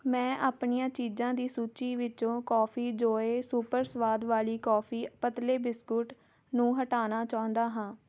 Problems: none marked